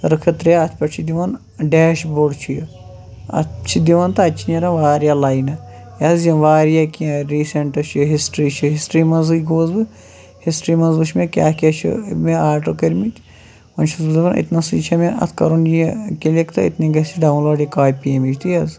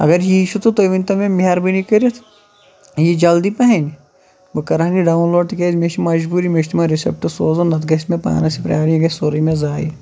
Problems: background conversations at intervals